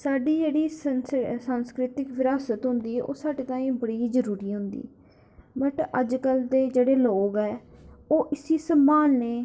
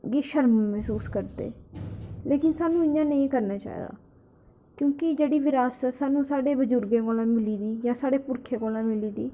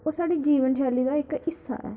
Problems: echo